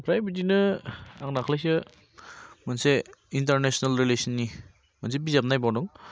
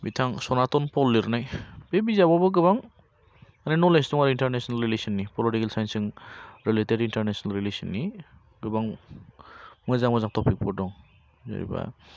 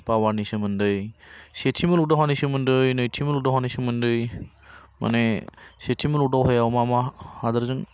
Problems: none marked